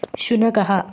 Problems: constant background noise